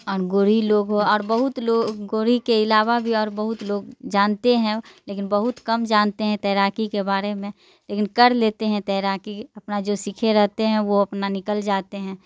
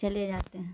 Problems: none marked